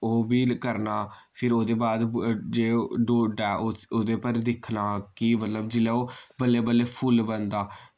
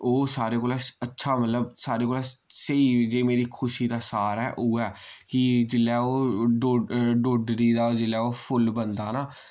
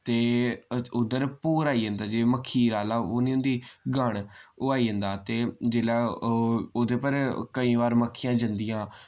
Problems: none marked